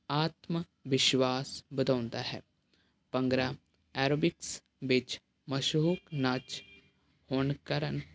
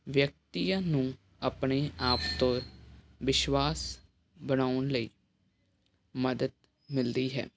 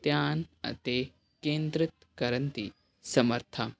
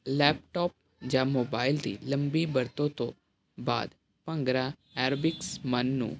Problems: none marked